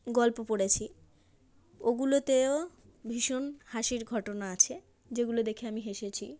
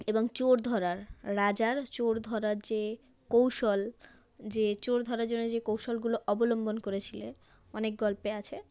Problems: constant background noise